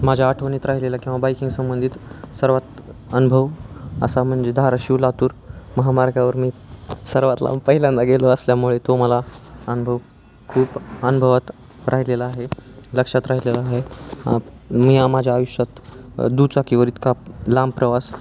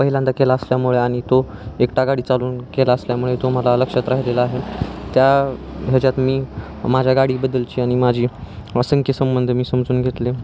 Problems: constant background noise, background conversations at intervals